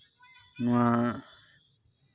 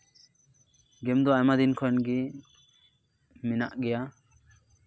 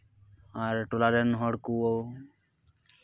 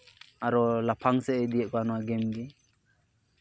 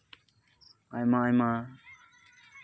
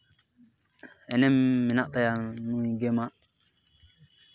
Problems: constant background noise, continuous background conversations